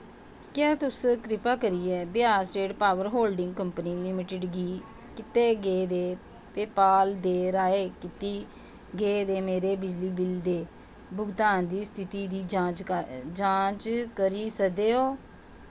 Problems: constant background noise